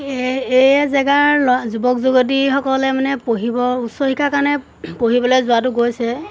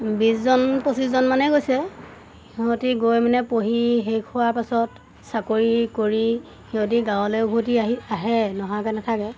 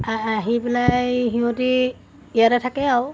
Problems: constant background noise